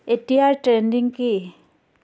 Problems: constant background noise